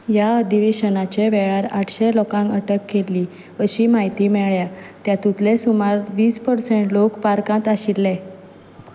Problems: background sounds at intervals